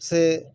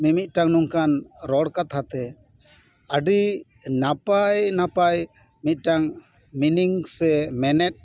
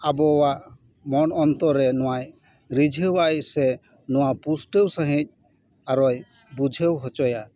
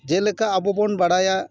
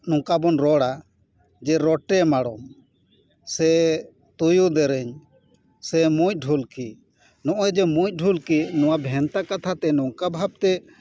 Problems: none marked